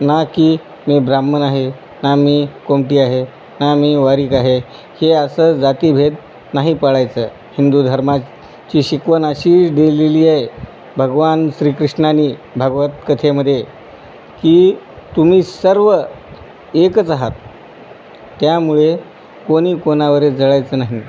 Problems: constant background noise